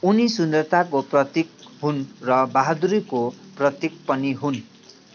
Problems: continuous background conversations